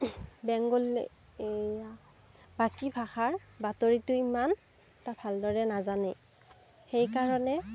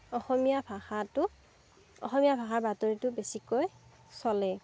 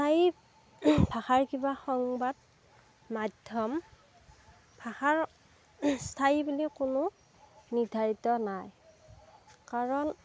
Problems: background sounds at intervals